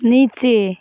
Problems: background sounds at intervals